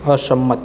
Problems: constant background noise